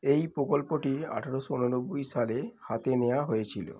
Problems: background conversations at intervals